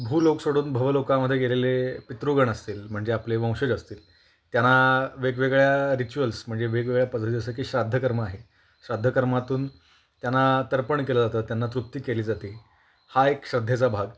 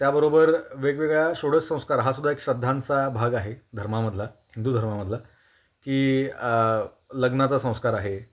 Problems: none marked